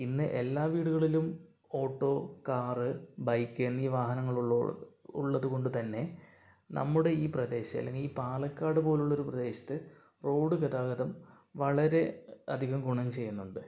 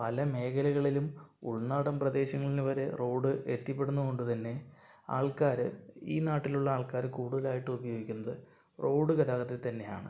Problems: low volume